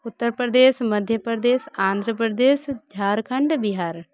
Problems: background sounds at intervals, continuous background conversations